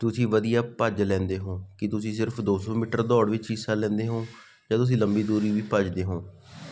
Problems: none marked